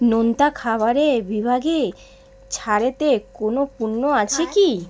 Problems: background conversations at intervals